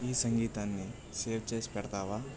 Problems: low volume